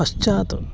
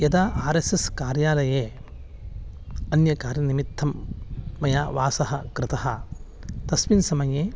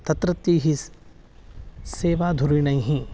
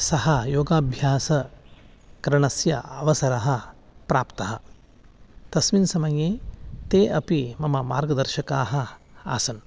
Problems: none marked